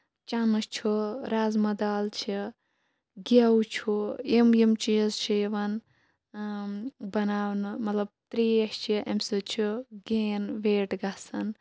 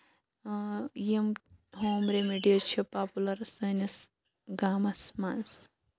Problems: none marked